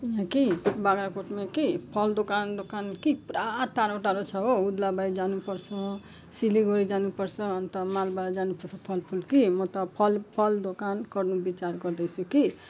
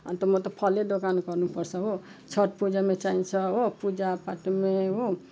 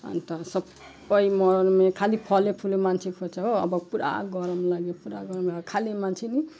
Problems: none marked